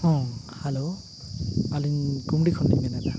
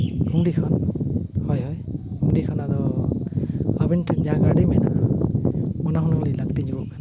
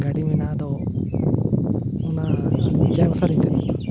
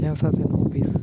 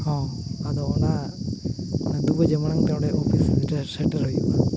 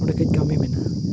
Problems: background sounds at intervals